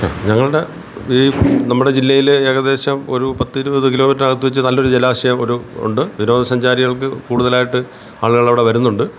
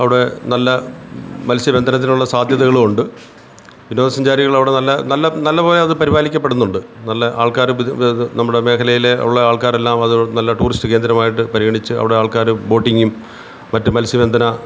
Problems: constant background noise